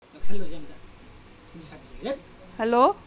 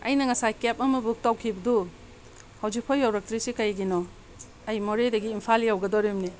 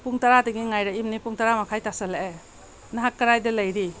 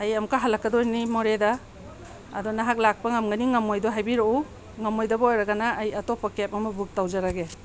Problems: background conversations at intervals